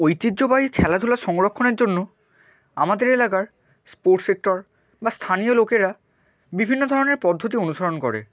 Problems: constant background noise